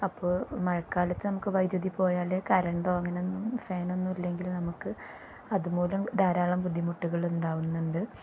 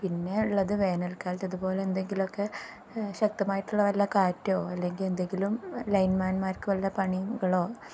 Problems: low volume